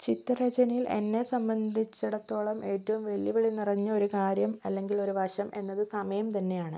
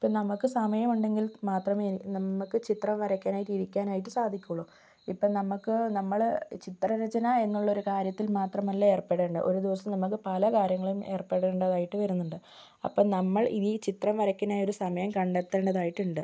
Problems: none marked